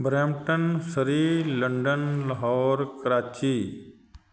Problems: constant background noise